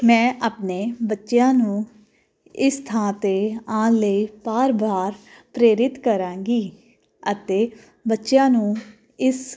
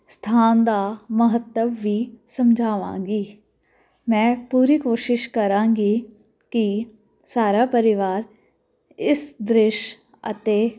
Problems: none marked